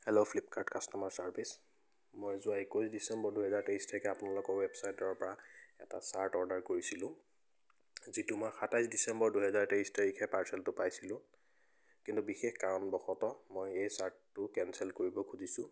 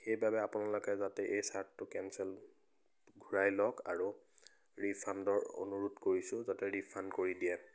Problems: none marked